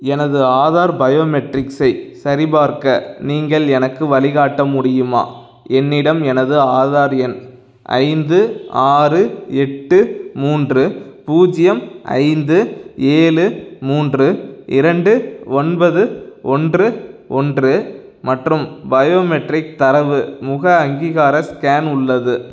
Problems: none marked